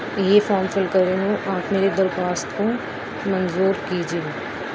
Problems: constant background noise